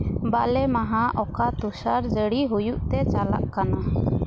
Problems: background sounds at intervals